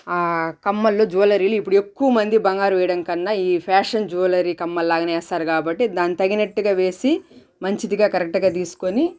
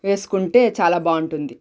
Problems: none marked